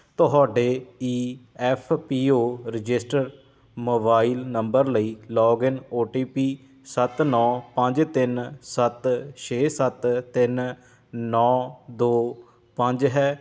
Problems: none marked